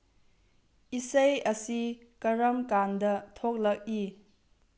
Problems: low volume